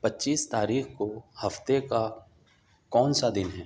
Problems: none marked